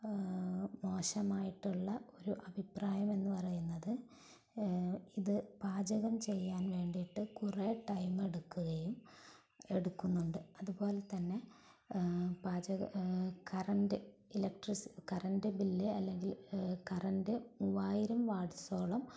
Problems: low volume